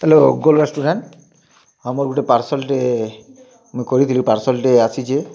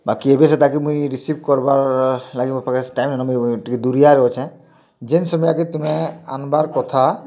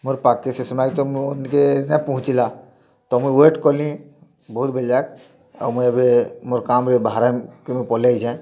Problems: constant background noise, continuous background conversations